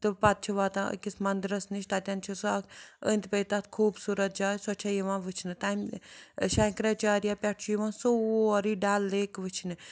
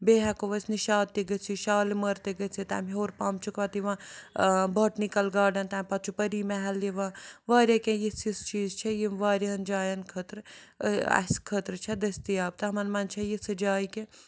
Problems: none marked